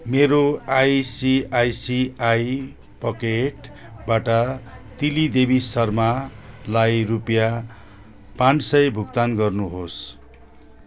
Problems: constant background noise